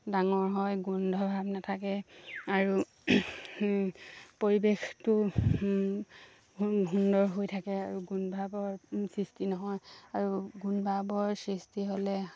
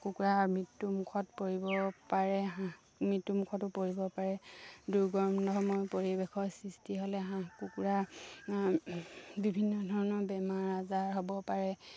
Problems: low volume